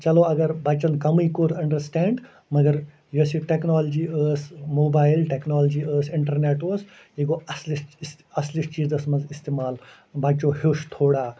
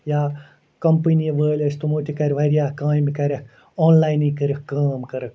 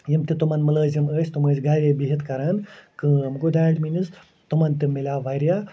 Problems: constant background noise